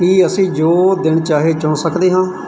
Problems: background sounds at intervals